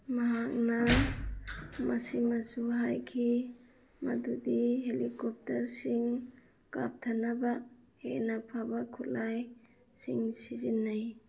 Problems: none marked